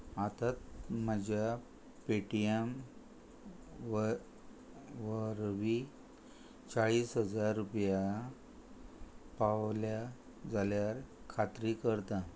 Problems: none marked